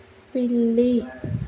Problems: continuous background conversations